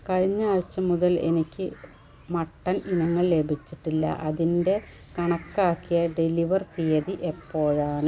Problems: background sounds at intervals